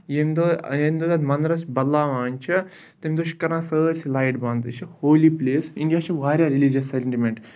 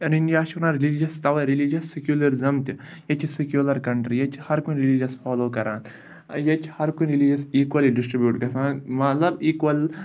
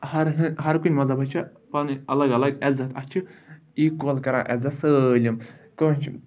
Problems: background sounds at intervals